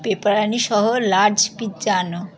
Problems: continuous background conversations